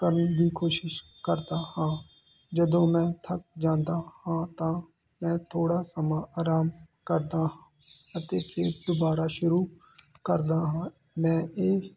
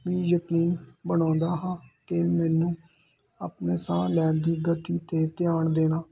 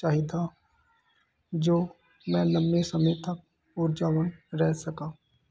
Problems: constant background noise